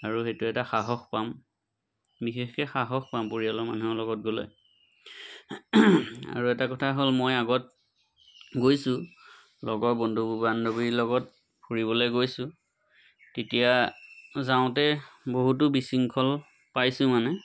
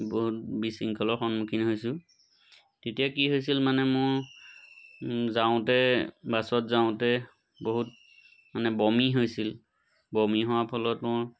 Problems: none marked